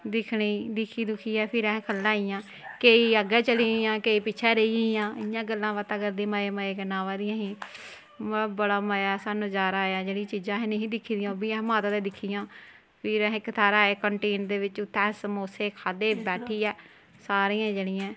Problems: none marked